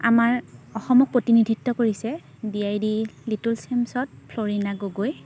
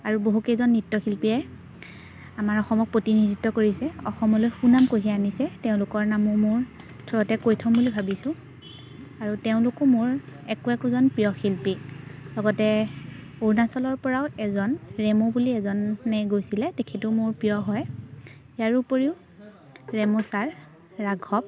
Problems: none marked